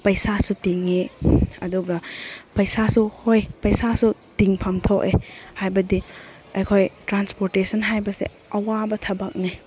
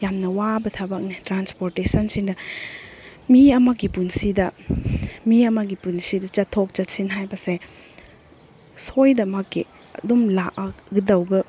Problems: none marked